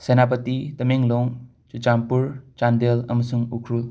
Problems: background sounds at intervals